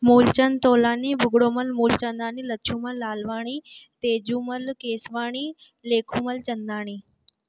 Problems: none marked